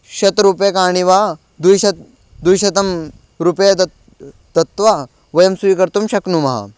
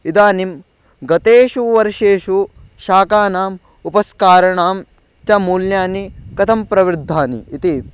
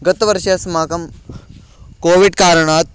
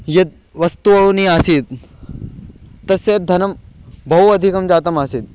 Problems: background sounds at intervals